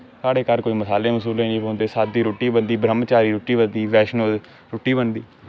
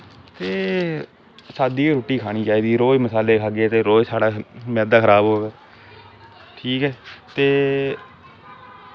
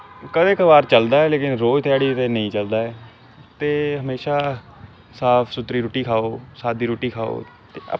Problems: constant background noise